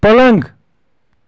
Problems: constant background noise